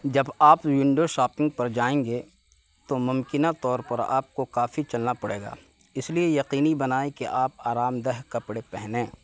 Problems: constant background noise